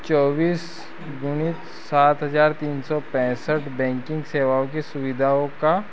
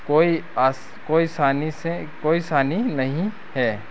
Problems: constant background noise